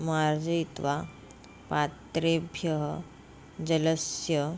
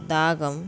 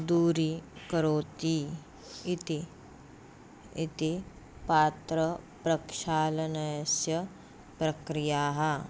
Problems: none marked